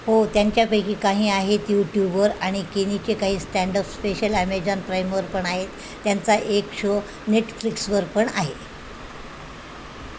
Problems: constant background noise